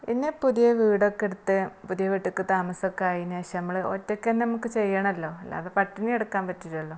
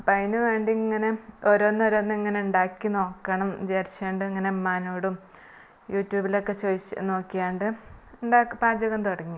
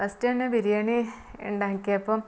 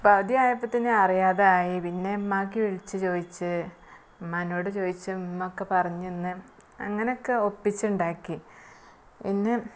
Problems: background sounds at intervals, low volume